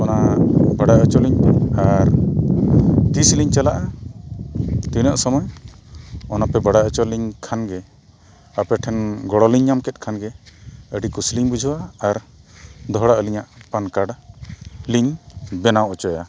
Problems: constant background noise